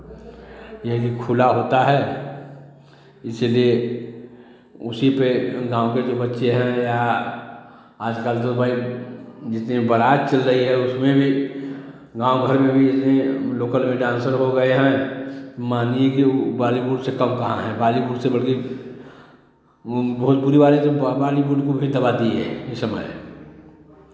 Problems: background conversations at intervals, echo